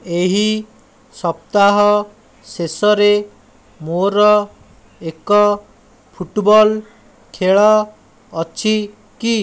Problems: none marked